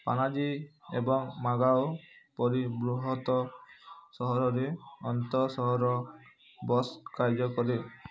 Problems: constant background noise